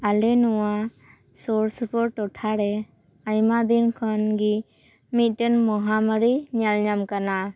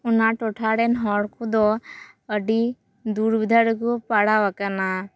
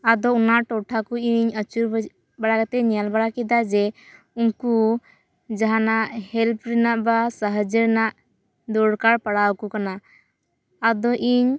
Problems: none marked